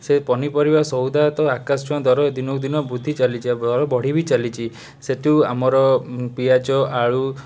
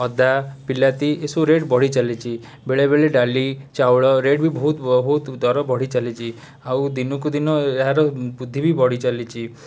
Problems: background sounds at intervals